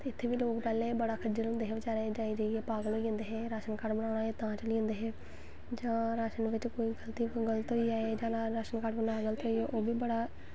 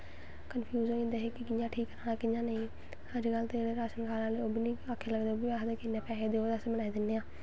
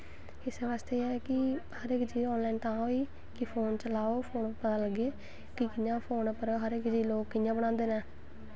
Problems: constant background noise